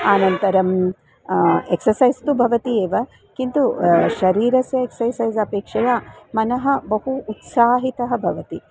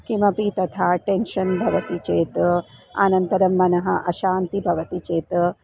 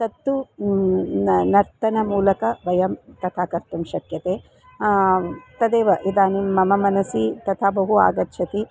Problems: constant background noise, background conversations at intervals